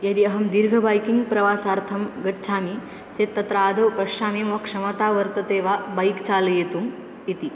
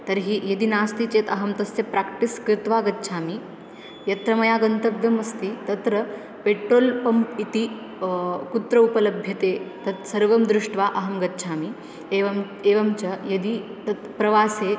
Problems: constant background noise